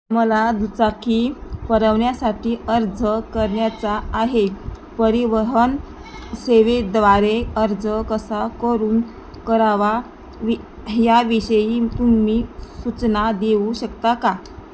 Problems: constant background noise